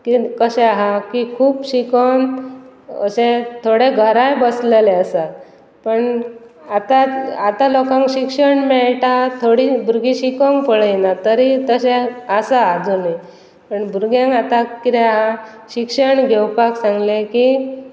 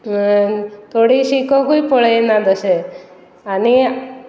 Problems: constant background noise